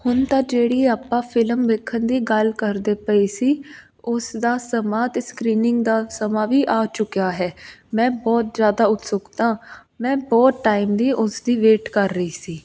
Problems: constant background noise